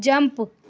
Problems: none marked